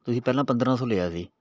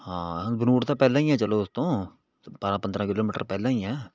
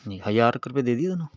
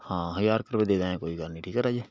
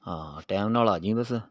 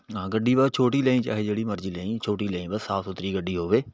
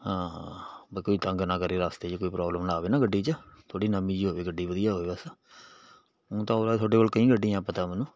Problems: background sounds at intervals